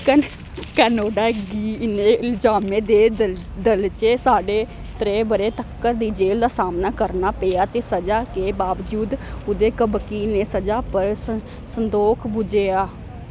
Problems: constant background noise